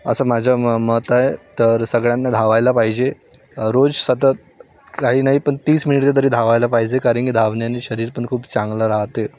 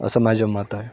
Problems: none marked